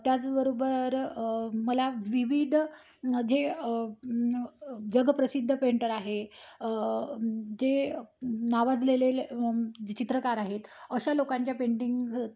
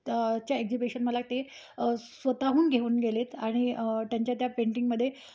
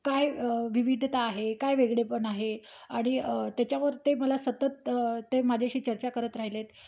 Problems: background sounds at intervals